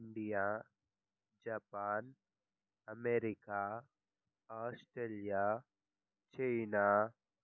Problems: low volume